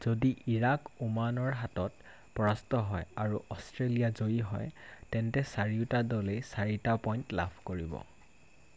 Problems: constant background noise